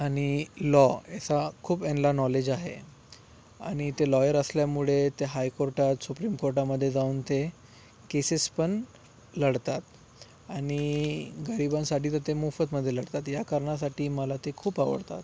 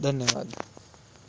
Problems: background sounds at intervals